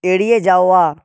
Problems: none marked